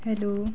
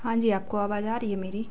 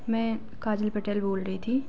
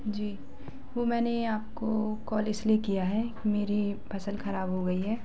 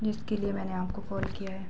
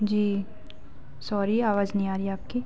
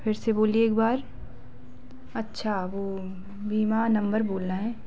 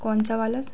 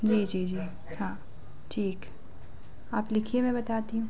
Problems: constant background noise